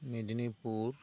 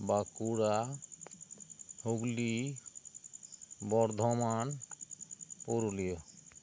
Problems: constant background noise